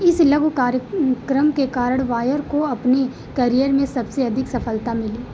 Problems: background sounds at intervals